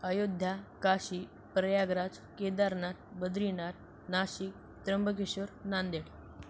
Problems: constant background noise